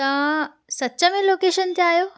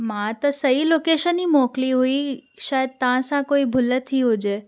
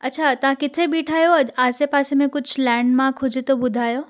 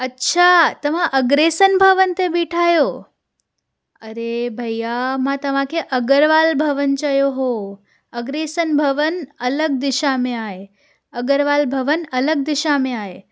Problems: none marked